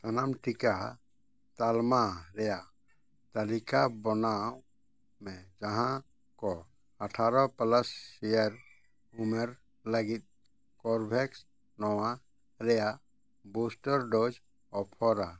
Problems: none marked